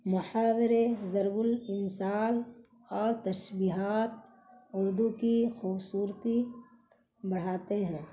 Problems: constant background noise